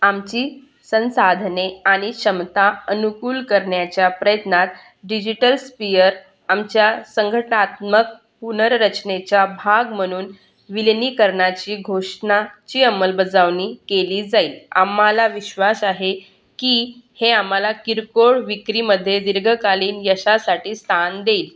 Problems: none marked